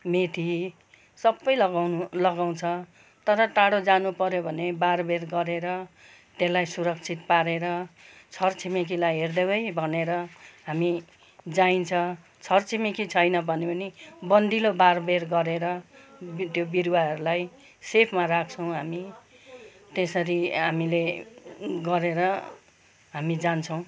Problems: background conversations at intervals